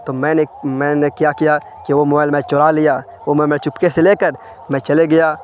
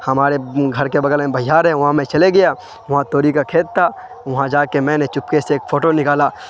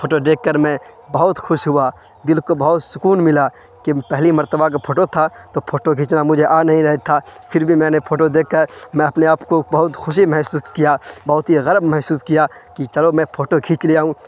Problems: constant background noise